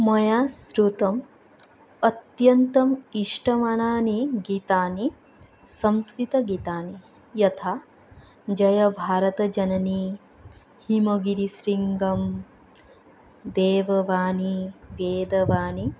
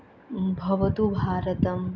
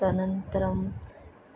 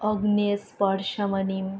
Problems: none marked